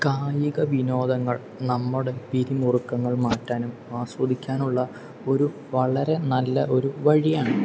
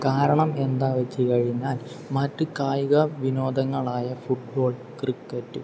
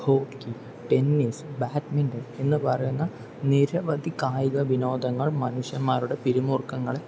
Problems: none marked